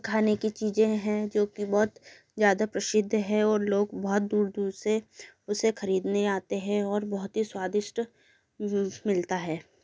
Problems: none marked